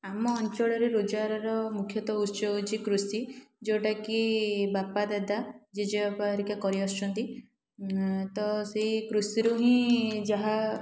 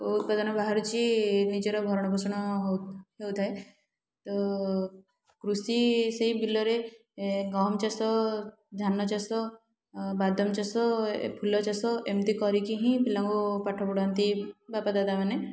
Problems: none marked